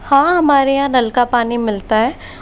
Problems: none marked